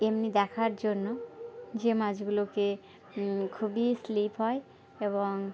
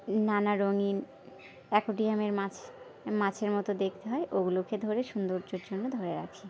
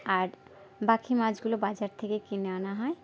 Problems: background sounds at intervals, background conversations at intervals